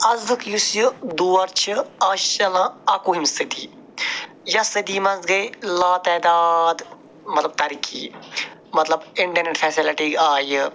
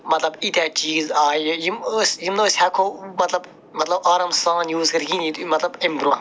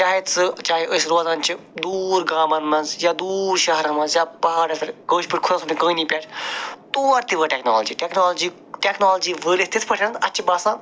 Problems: none marked